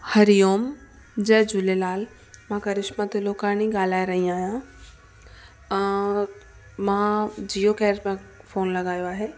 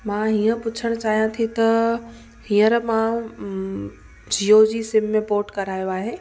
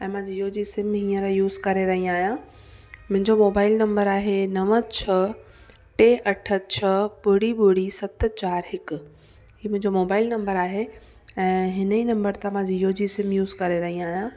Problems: constant background noise, echo